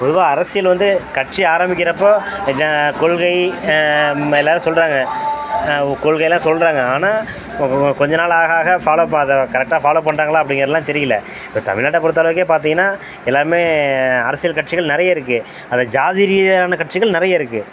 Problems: constant background noise